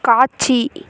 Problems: none marked